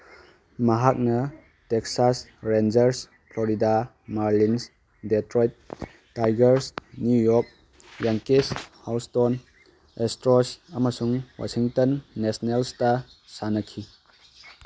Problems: background sounds at intervals